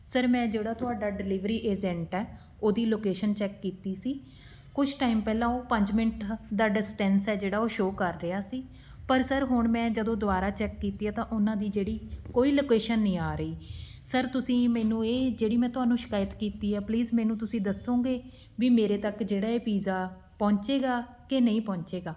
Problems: none marked